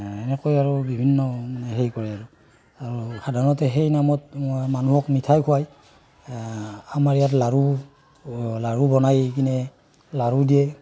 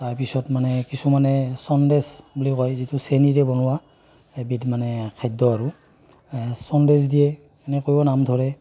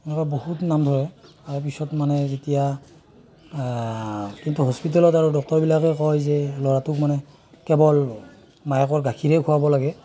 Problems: none marked